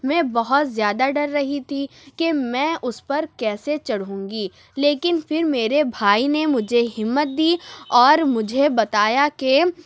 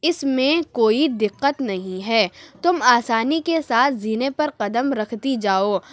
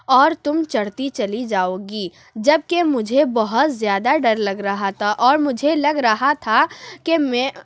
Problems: none marked